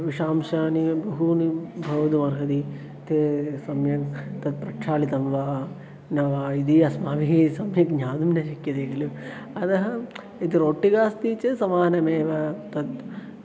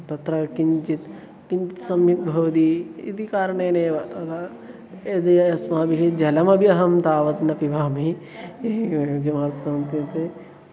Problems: constant background noise, continuous background conversations